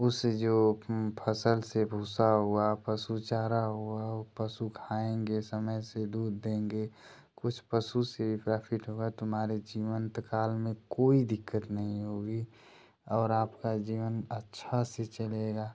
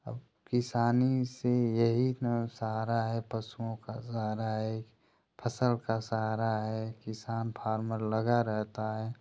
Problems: constant background noise